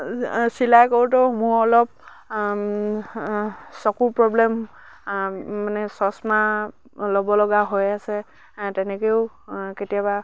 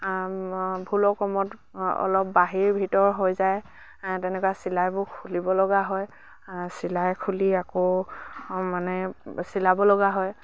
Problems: none marked